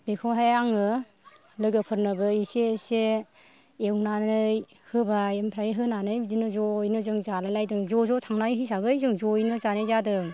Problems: none marked